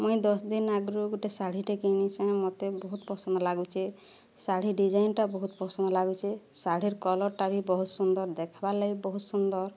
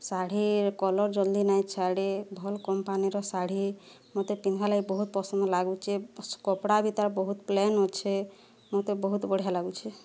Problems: none marked